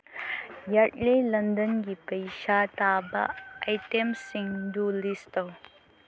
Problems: constant background noise